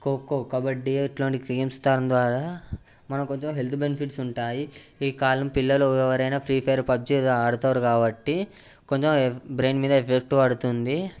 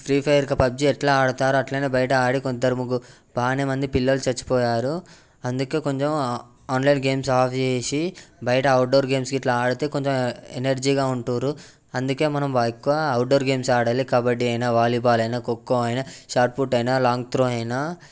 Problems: background sounds at intervals